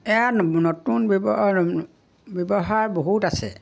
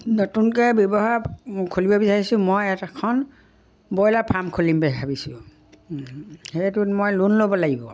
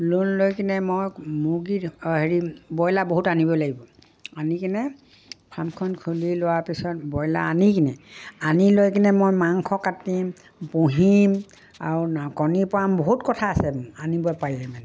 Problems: background sounds at intervals